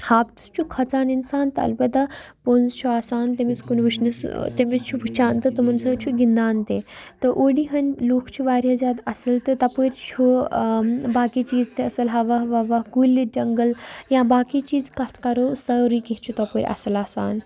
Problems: background sounds at intervals